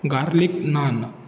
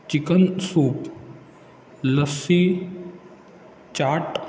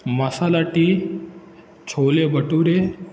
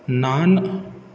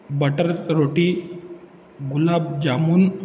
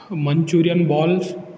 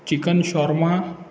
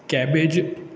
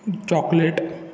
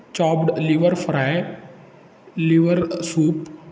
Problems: background sounds at intervals